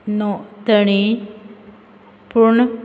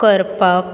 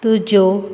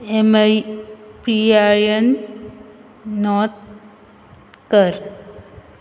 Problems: constant background noise